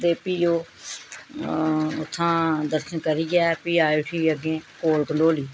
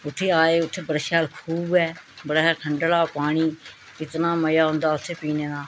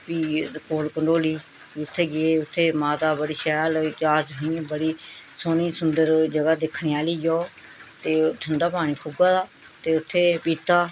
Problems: none marked